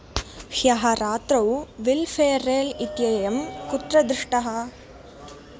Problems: background sounds at intervals